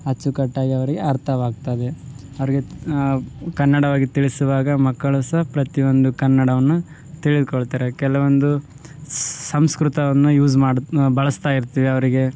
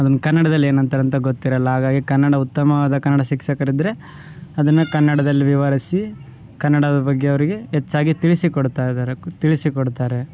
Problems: background sounds at intervals